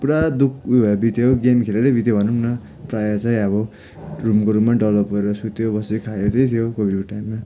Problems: background sounds at intervals, continuous background conversations